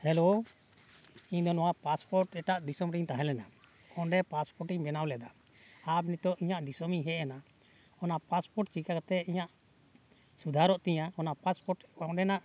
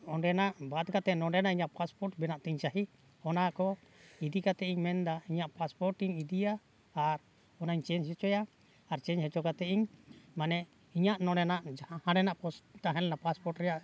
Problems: background sounds at intervals